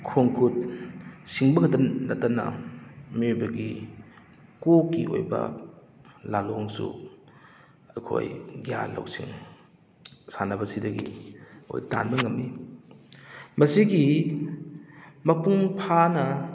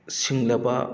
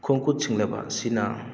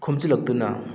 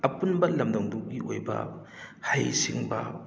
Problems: background sounds at intervals